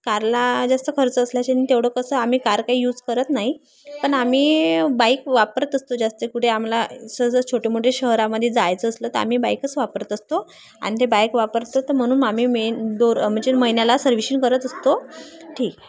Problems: constant background noise, continuous background conversations